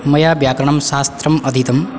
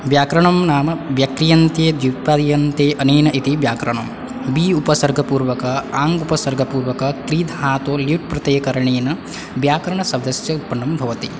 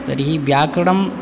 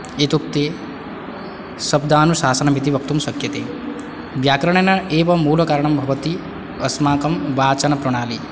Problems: none marked